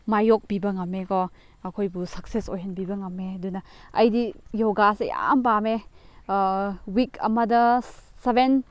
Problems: none marked